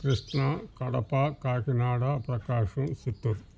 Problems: background sounds at intervals